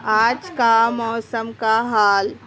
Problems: constant background noise